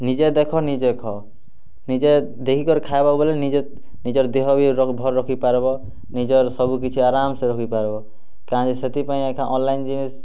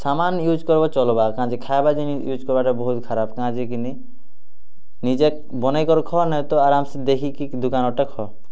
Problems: none marked